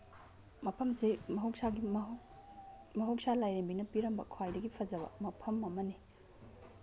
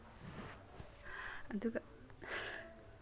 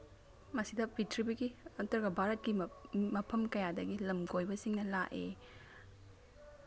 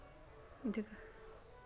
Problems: background sounds at intervals